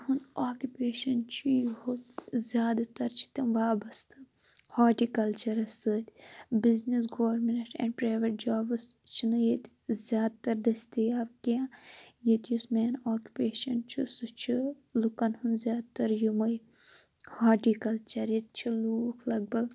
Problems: constant background noise